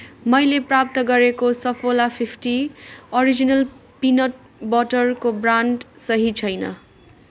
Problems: continuous background conversations